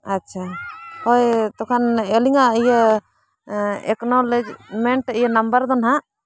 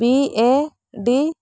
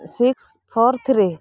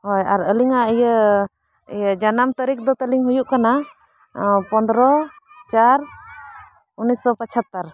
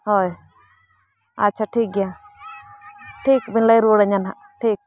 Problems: background sounds at intervals